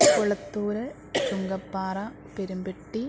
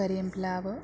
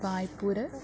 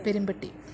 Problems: none marked